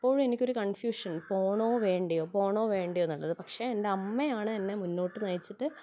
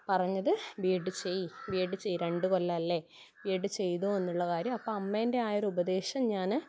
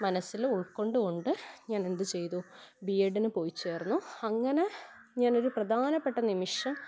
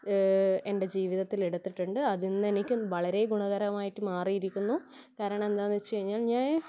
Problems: background sounds at intervals